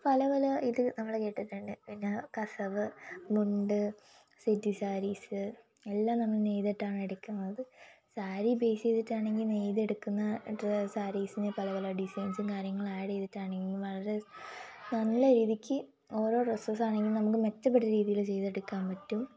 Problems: low volume